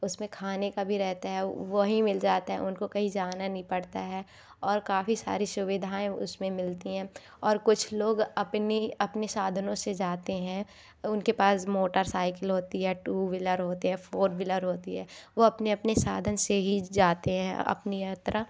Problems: none marked